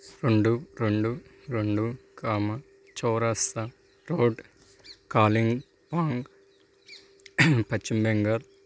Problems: none marked